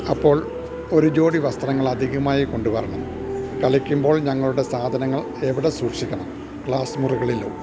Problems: constant background noise, low volume